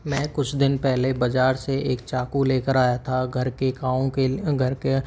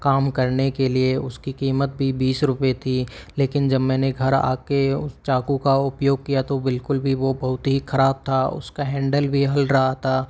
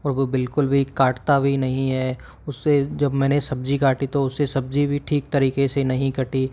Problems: none marked